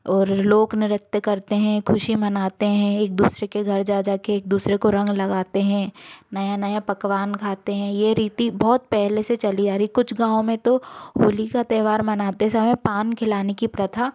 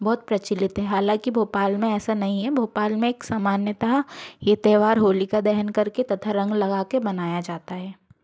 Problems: constant background noise